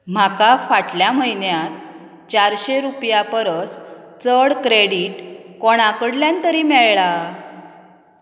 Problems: none marked